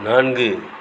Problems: constant background noise